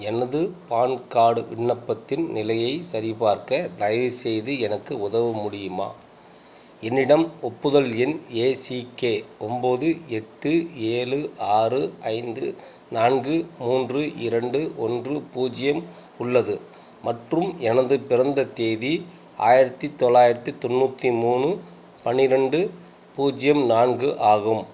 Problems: constant background noise